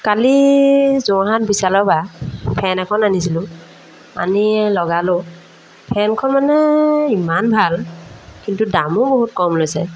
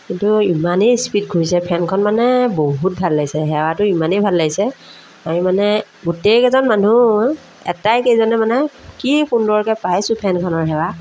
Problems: background sounds at intervals